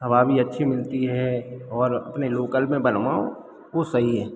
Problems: background sounds at intervals